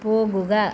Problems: none marked